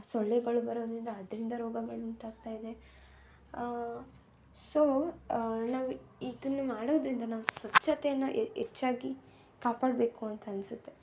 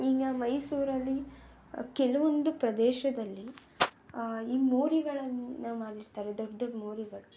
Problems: background sounds at intervals